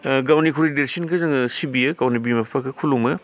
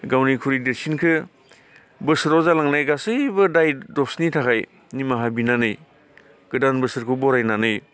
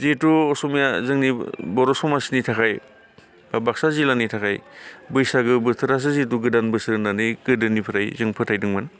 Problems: none marked